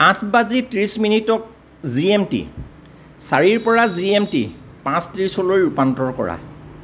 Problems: none marked